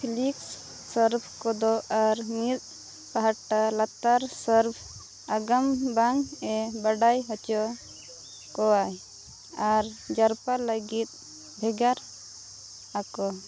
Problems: constant background noise